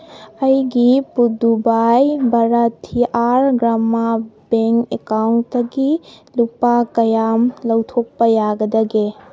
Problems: background sounds at intervals